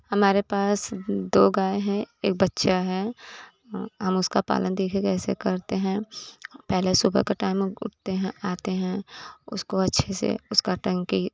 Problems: none marked